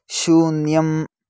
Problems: none marked